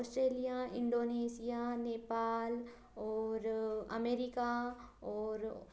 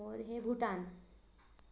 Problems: low volume